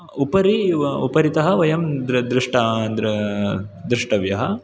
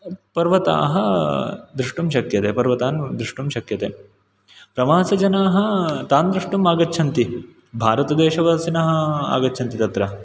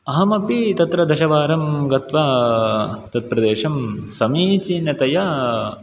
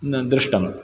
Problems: background sounds at intervals